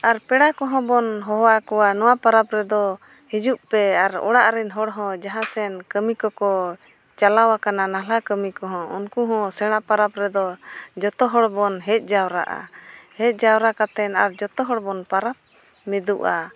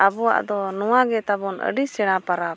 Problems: none marked